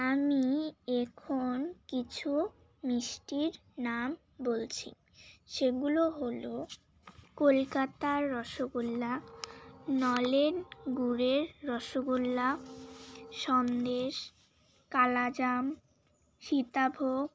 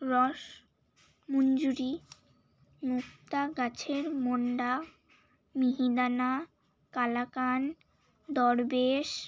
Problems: constant background noise, background conversations at intervals